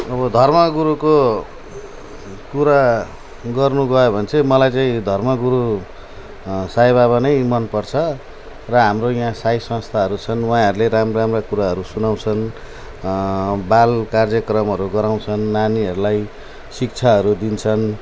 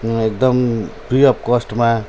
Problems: none marked